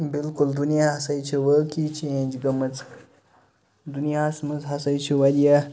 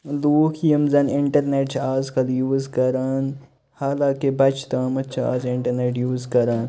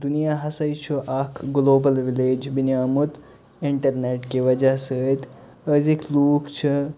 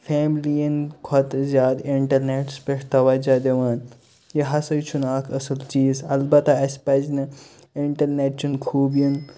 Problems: constant background noise